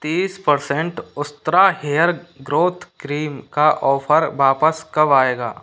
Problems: constant background noise